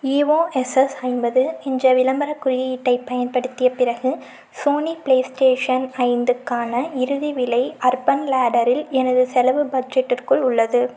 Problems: none marked